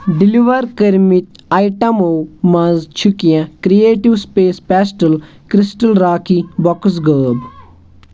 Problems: constant background noise